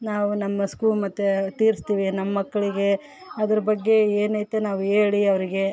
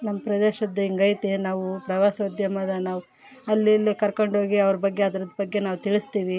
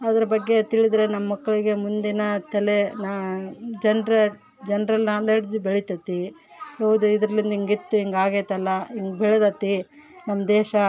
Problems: background sounds at intervals